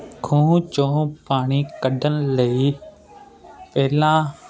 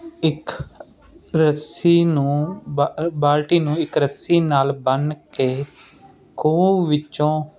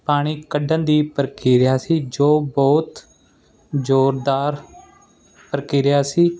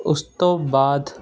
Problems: constant background noise